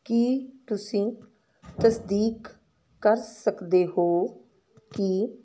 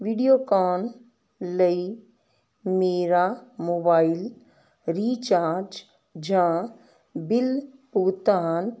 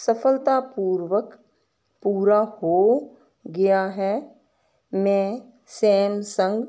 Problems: constant background noise